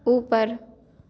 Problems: constant background noise, echo